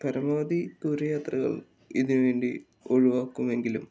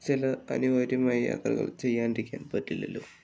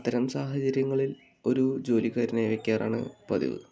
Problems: background conversations at intervals